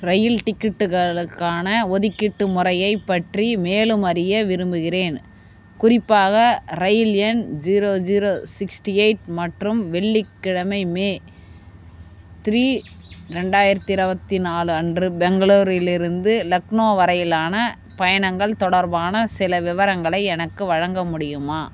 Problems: constant background noise